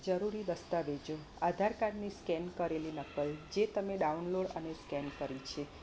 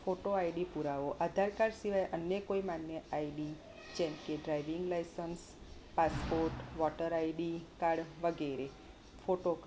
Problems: none marked